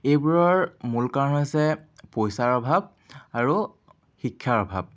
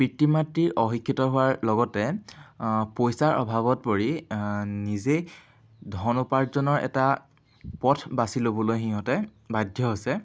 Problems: none marked